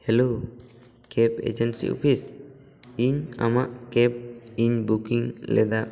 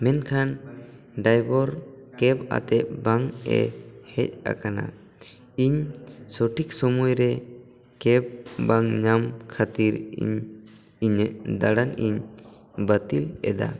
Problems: background conversations at intervals